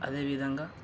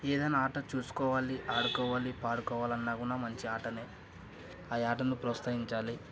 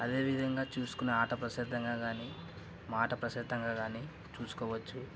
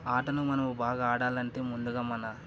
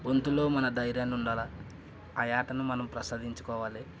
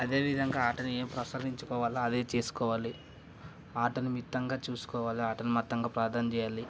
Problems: none marked